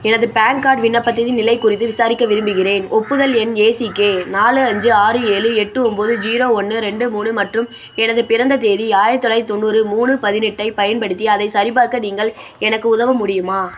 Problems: constant background noise